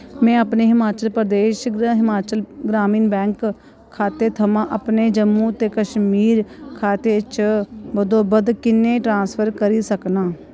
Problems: constant background noise